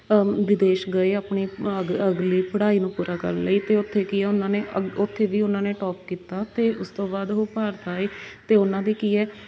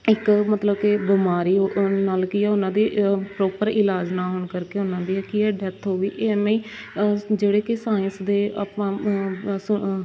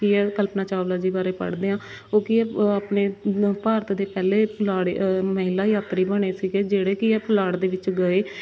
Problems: constant background noise